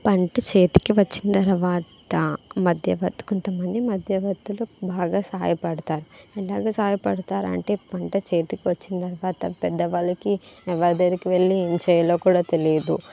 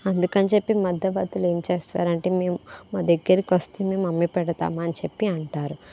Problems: background conversations at intervals